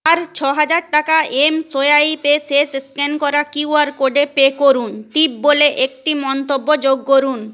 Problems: constant background noise